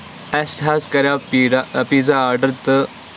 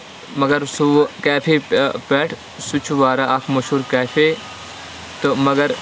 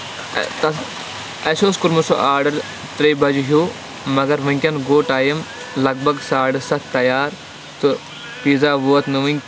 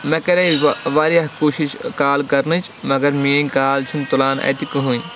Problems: constant background noise, background conversations at intervals